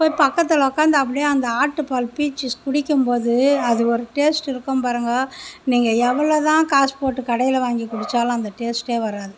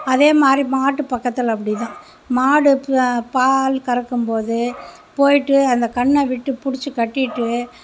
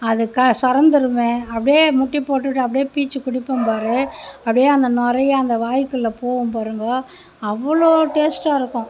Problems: none marked